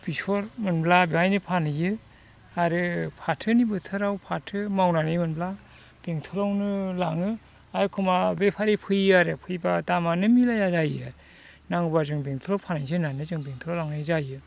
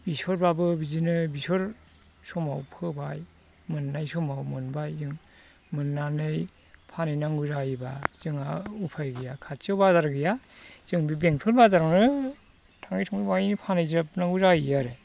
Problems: constant background noise